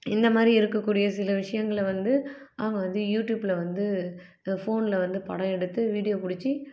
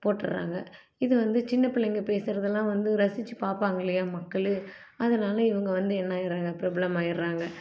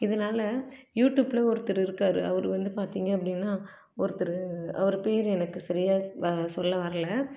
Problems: low volume